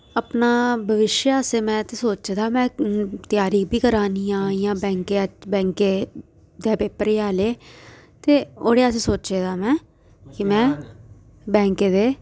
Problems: background conversations at intervals